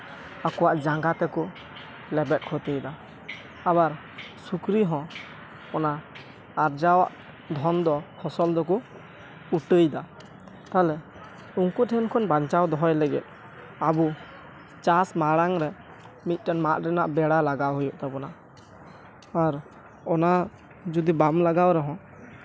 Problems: background sounds at intervals